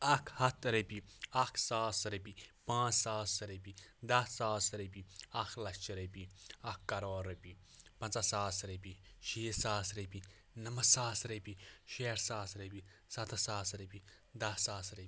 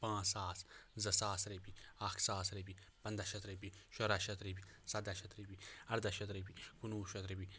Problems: none marked